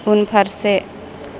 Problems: none marked